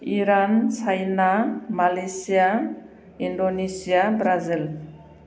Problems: constant background noise